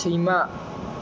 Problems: low volume